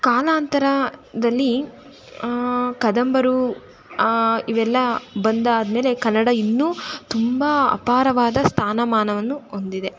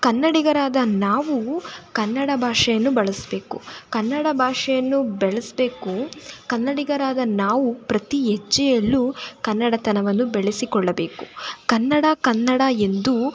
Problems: constant background noise